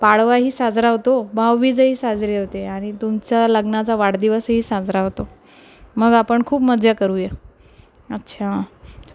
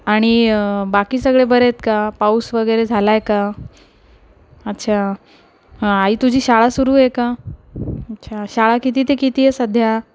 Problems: none marked